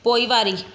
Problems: echo